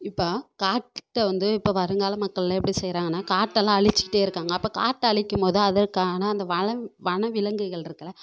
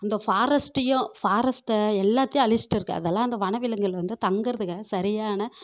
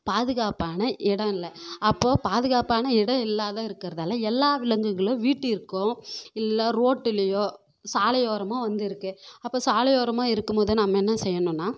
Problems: none marked